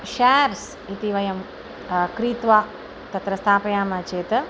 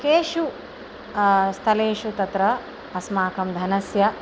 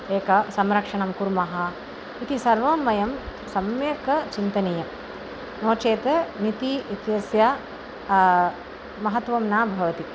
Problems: constant background noise